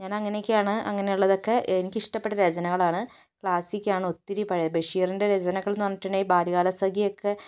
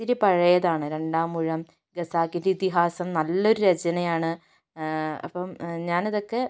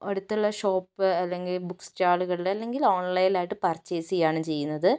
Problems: none marked